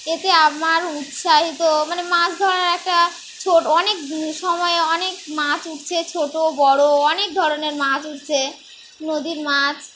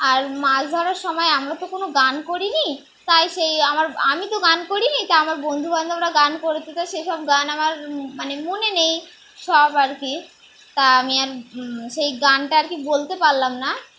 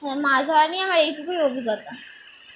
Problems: constant background noise